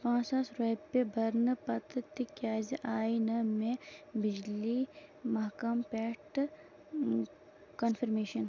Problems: constant background noise, low volume